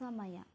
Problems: low volume